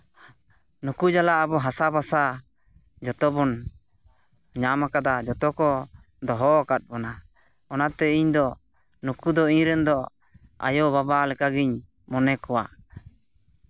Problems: constant background noise, background conversations at intervals